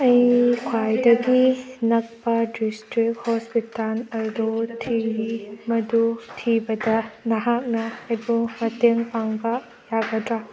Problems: background sounds at intervals